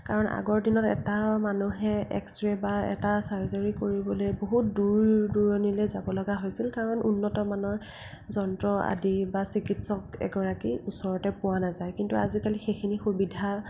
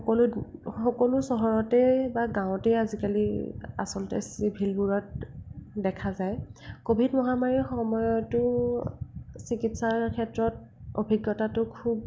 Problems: constant background noise, low volume